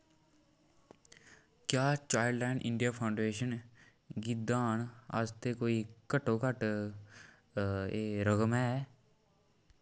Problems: background sounds at intervals